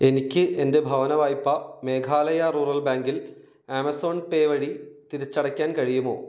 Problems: none marked